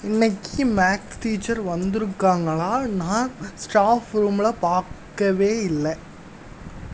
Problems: background sounds at intervals